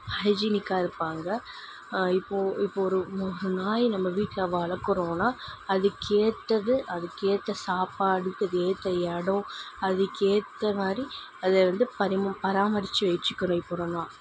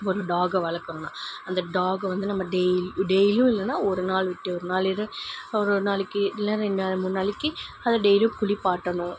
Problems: constant background noise